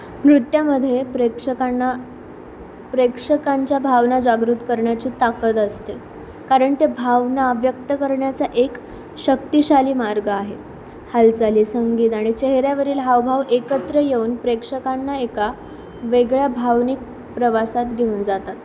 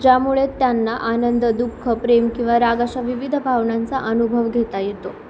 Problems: none marked